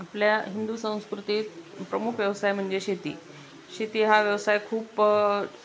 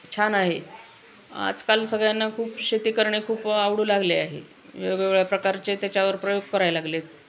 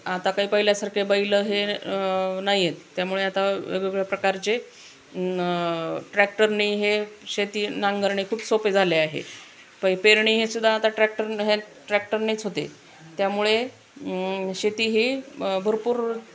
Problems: constant background noise, background conversations at intervals